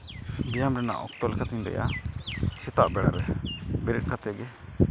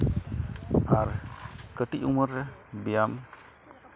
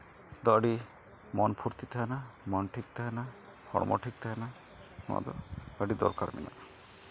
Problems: background sounds at intervals